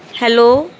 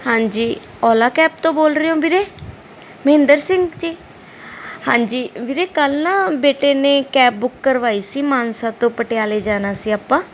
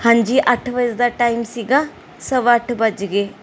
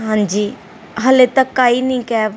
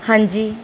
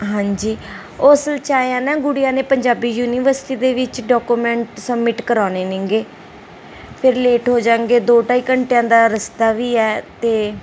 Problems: background sounds at intervals